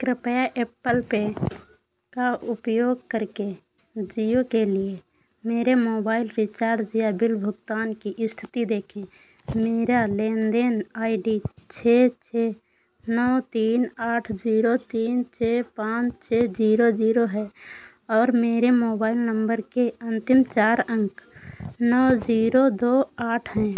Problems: constant background noise